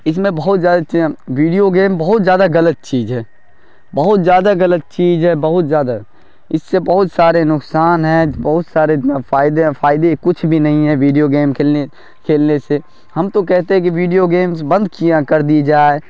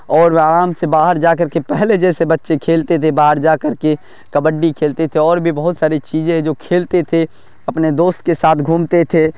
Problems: none marked